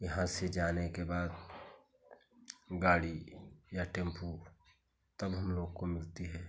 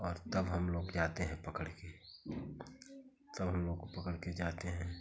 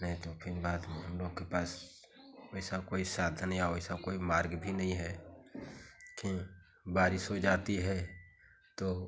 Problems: constant background noise